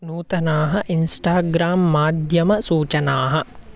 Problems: none marked